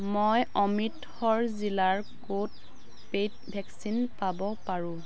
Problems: none marked